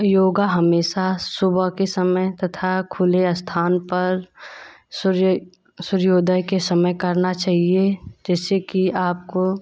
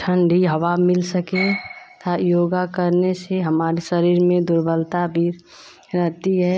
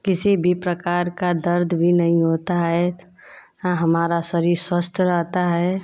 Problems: none marked